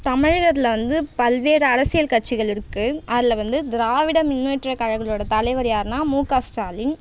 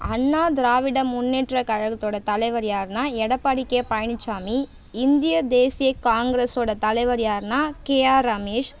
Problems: constant background noise